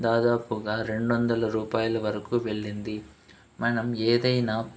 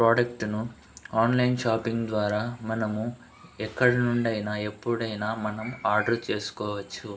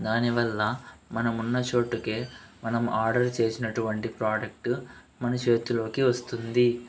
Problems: background sounds at intervals, background conversations at intervals